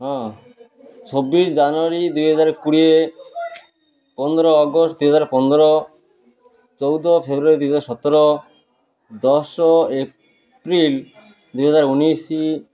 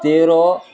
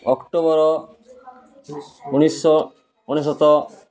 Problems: constant background noise